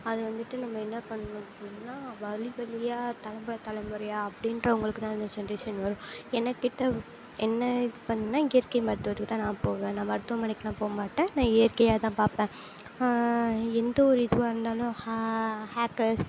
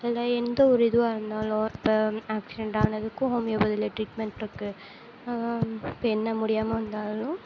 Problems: low volume